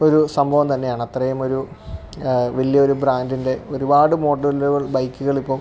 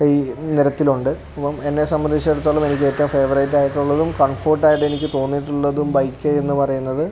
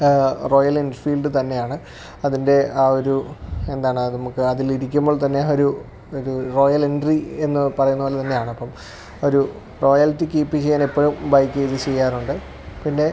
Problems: none marked